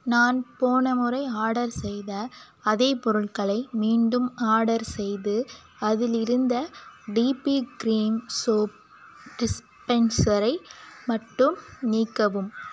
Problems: constant background noise